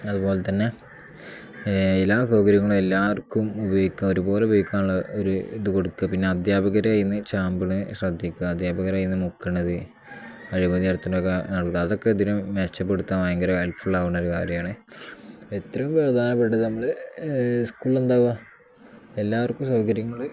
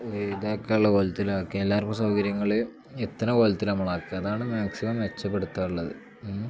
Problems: none marked